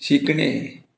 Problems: none marked